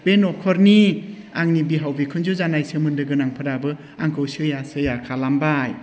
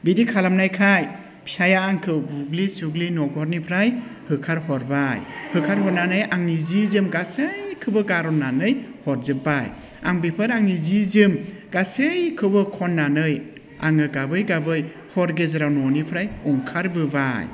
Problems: none marked